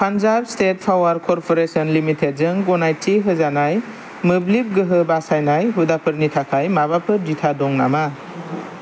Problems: none marked